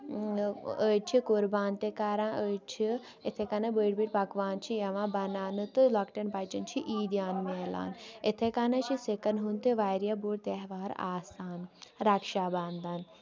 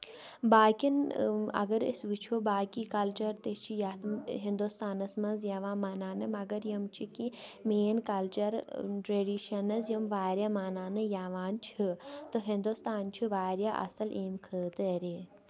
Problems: constant background noise